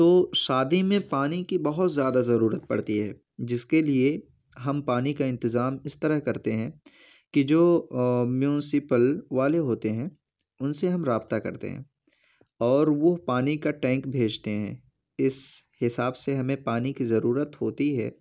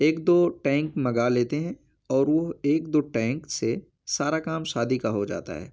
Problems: none marked